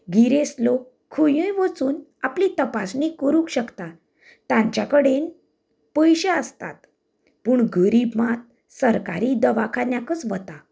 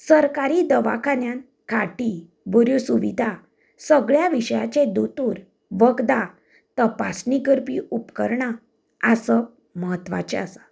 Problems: none marked